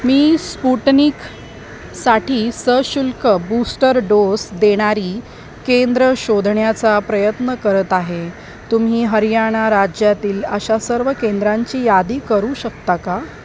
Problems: constant background noise